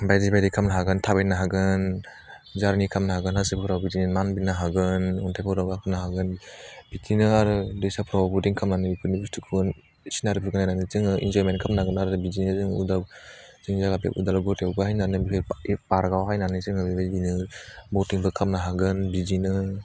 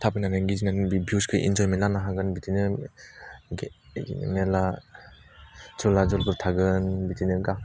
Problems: none marked